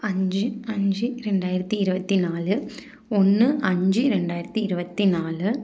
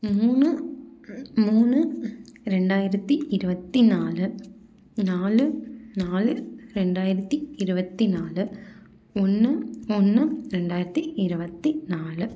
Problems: none marked